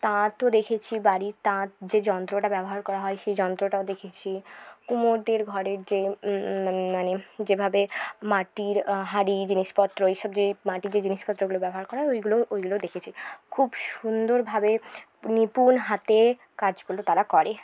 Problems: background sounds at intervals